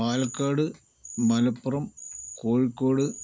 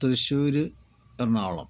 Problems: constant background noise, low volume